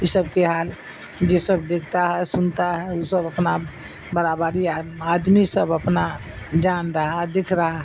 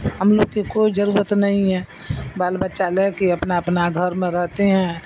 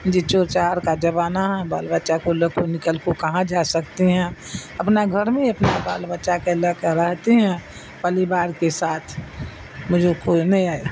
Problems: constant background noise